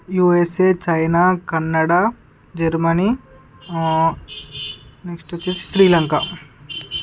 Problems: constant background noise